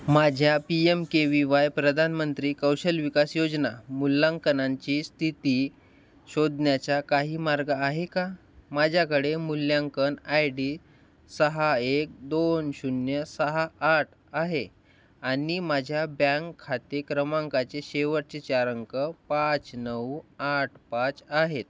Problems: none marked